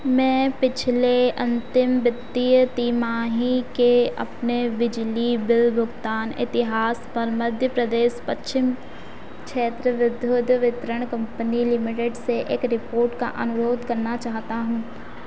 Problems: constant background noise